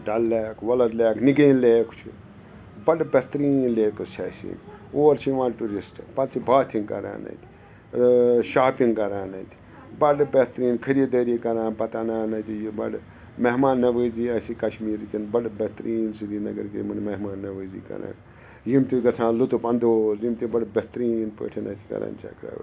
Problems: constant background noise